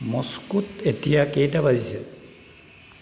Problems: constant background noise